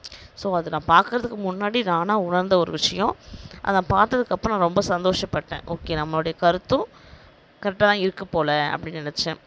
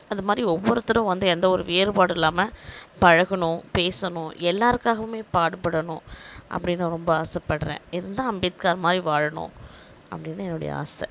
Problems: none marked